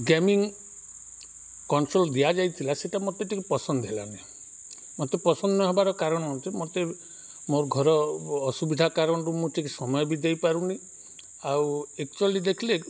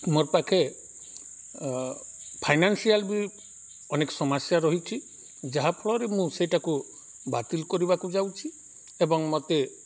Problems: background sounds at intervals